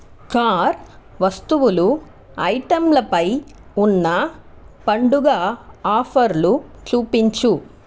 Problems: constant background noise